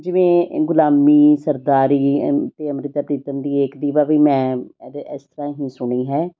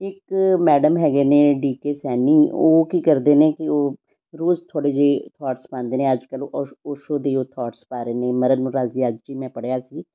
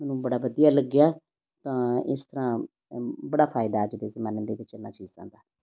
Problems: none marked